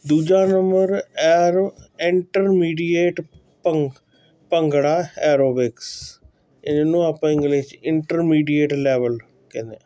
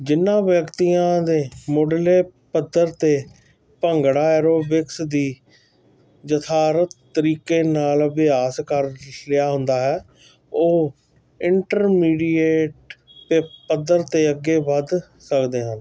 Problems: none marked